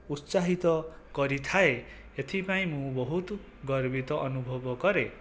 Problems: background sounds at intervals, low volume